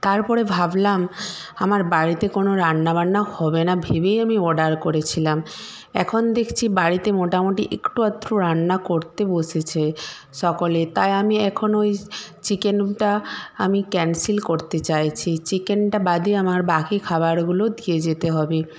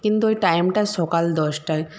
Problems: none marked